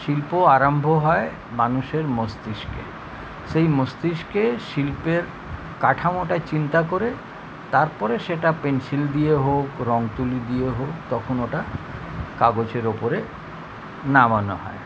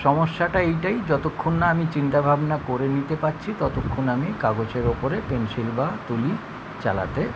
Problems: none marked